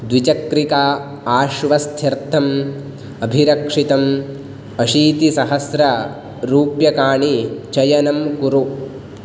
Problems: none marked